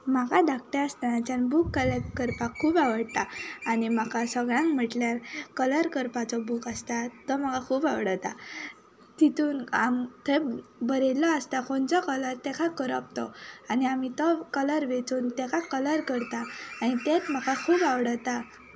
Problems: constant background noise